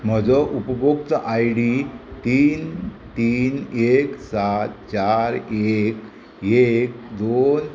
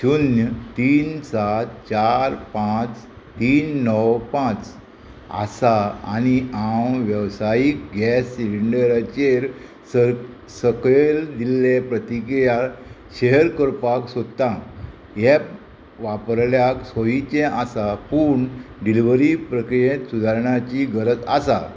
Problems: constant background noise